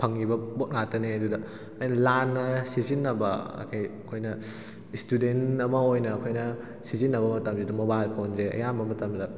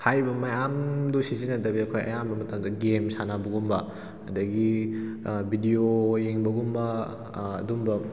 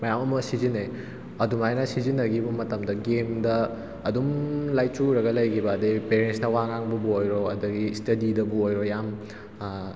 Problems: background sounds at intervals